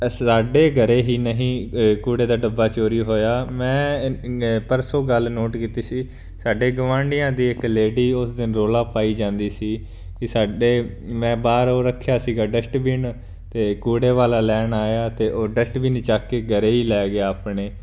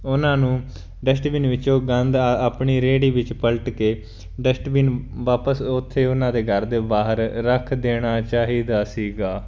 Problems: none marked